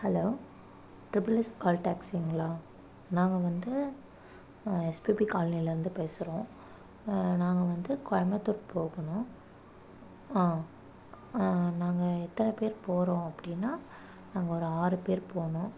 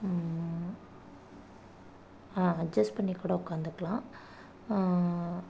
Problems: none marked